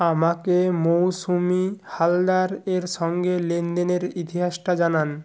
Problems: none marked